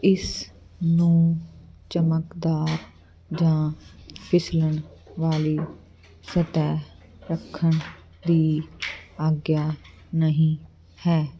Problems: constant background noise